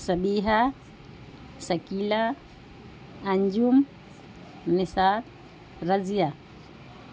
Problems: constant background noise